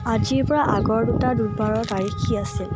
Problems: constant background noise